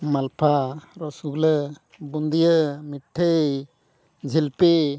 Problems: none marked